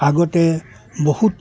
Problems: background sounds at intervals